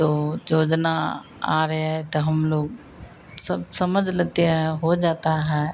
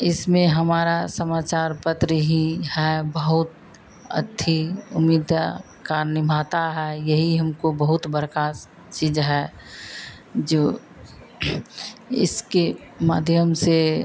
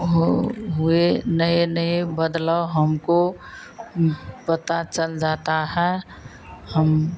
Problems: none marked